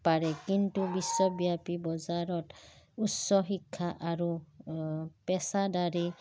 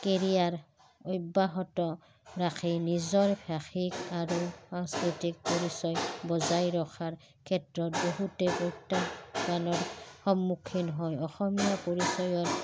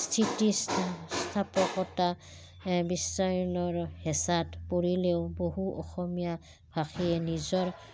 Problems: background sounds at intervals